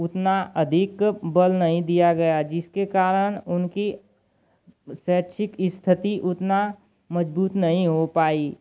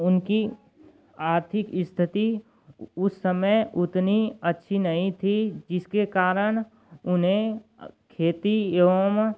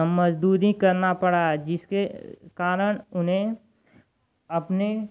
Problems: none marked